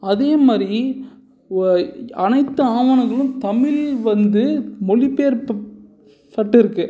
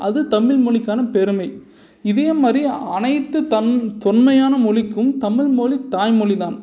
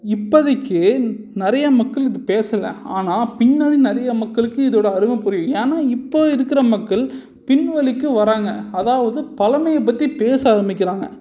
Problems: none marked